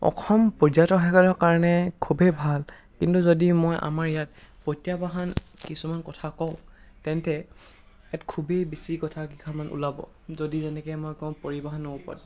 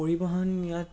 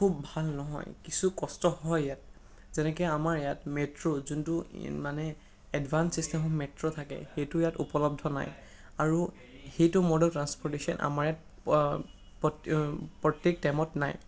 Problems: constant background noise